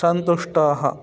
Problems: continuous background conversations